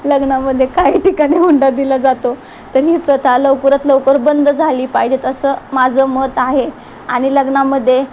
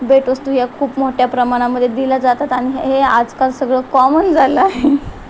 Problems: constant background noise, background conversations at intervals